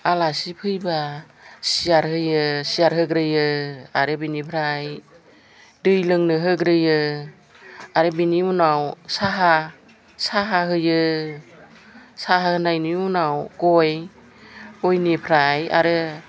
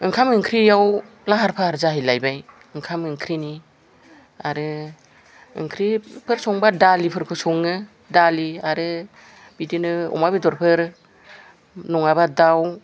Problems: background conversations at intervals